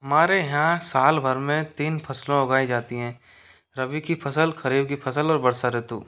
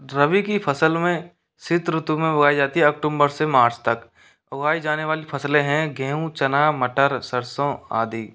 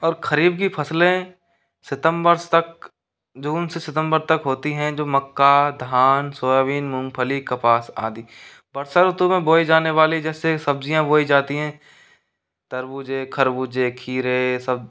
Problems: none marked